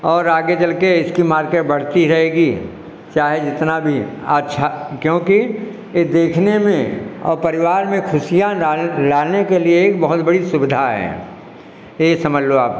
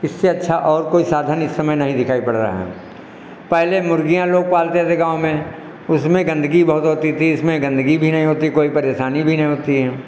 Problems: none marked